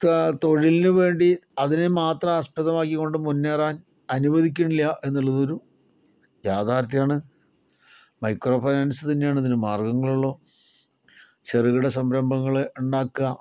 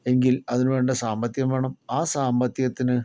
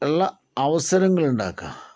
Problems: none marked